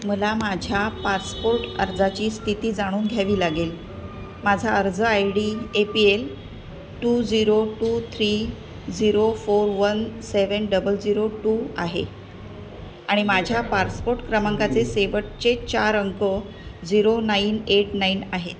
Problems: none marked